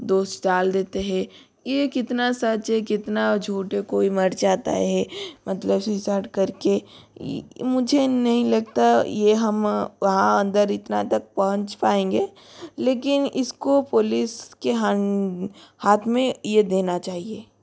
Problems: none marked